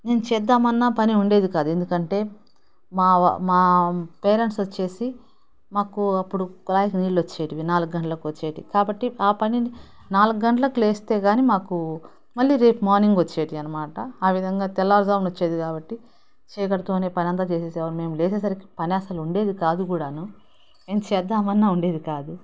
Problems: none marked